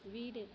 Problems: low volume